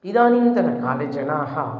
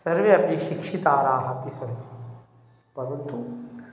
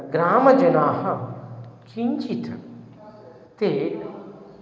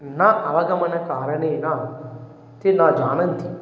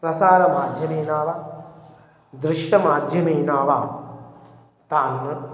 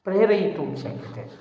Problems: none marked